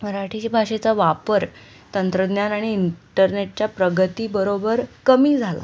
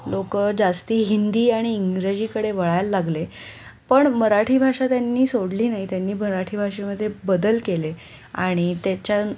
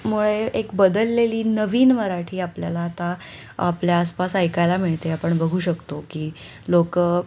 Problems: none marked